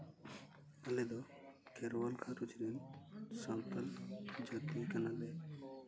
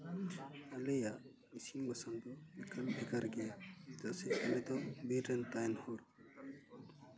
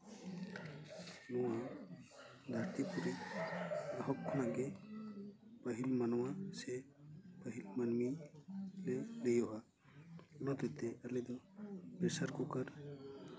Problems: none marked